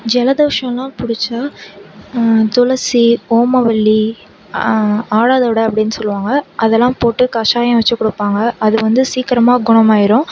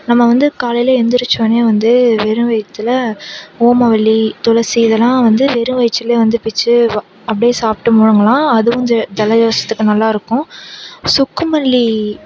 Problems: none marked